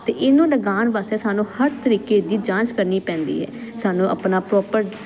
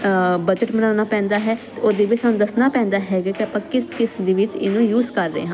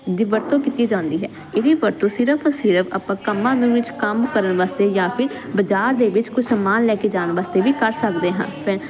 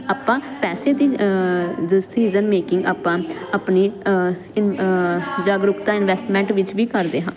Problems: continuous background conversations